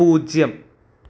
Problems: none marked